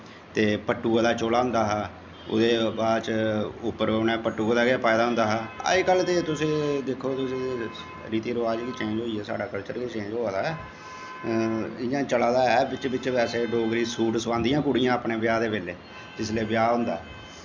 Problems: constant background noise, echo